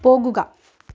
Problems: none marked